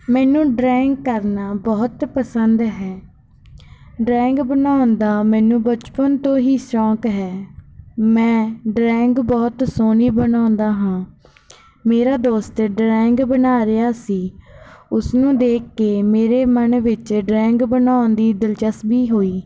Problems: background sounds at intervals